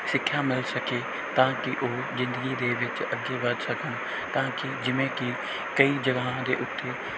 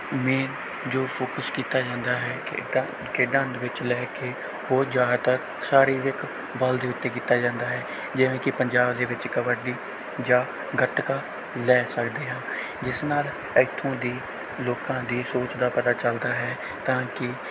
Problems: none marked